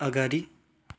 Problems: none marked